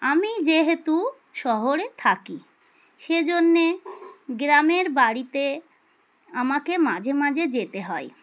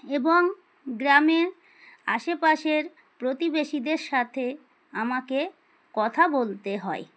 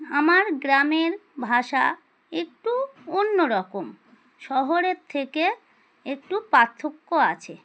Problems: none marked